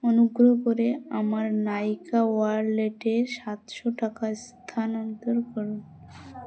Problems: constant background noise, continuous background conversations